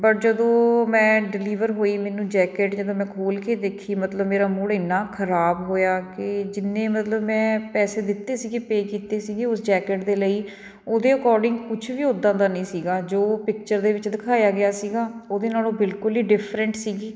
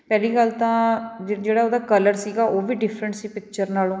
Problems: background sounds at intervals